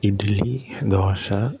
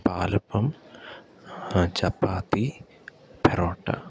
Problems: none marked